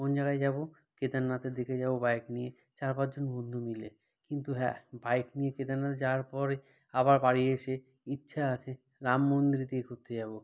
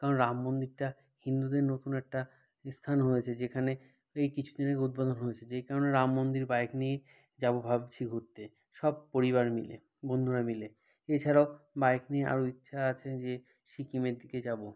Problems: none marked